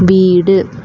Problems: none marked